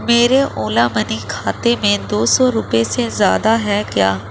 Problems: constant background noise